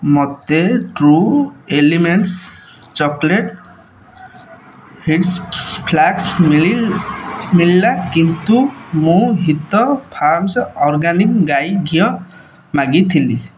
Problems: constant background noise, echo